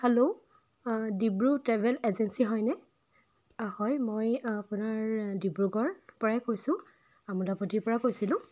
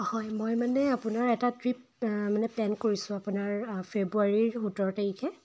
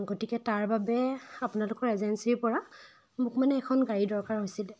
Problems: constant background noise